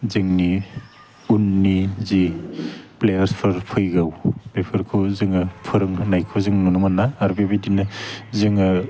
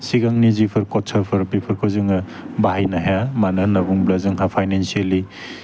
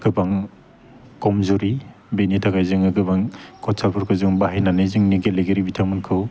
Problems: constant background noise